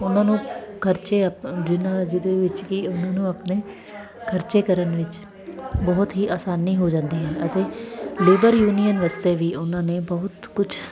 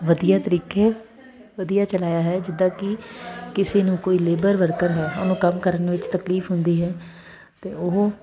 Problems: constant background noise, continuous background conversations